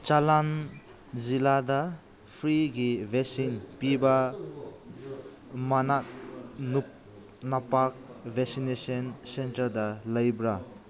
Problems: constant background noise